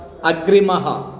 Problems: constant background noise